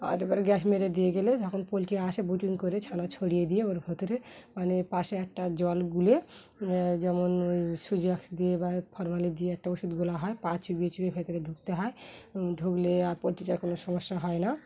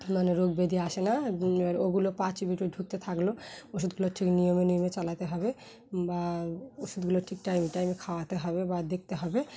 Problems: background sounds at intervals